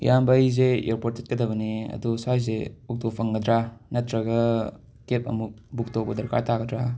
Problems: background sounds at intervals